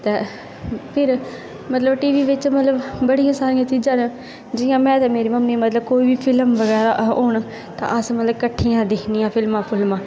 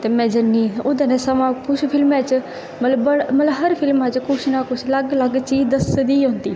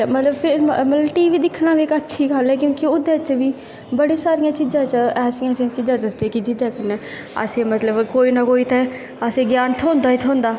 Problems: constant background noise